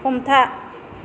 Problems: constant background noise